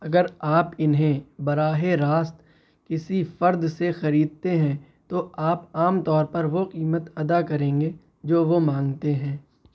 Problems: none marked